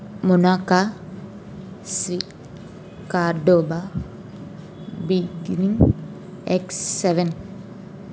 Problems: none marked